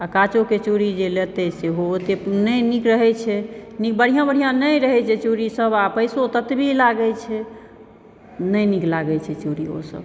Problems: background sounds at intervals